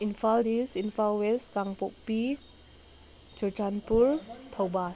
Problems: none marked